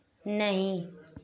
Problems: none marked